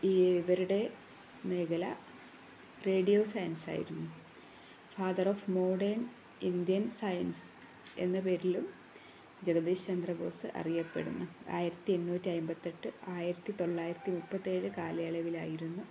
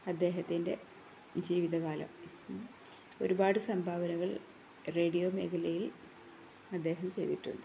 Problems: none marked